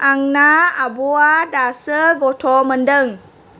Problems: constant background noise